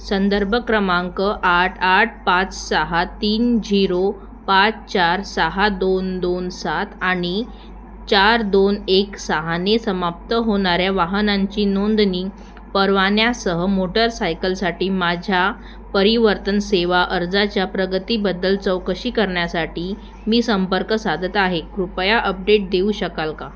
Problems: constant background noise